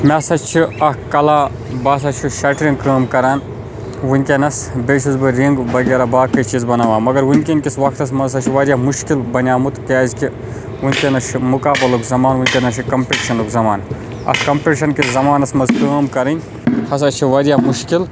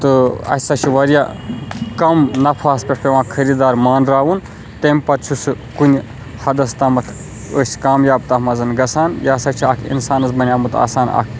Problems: constant background noise